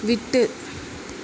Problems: constant background noise